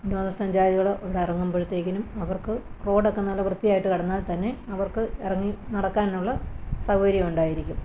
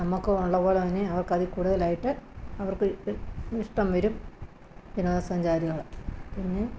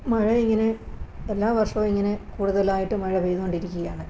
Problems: none marked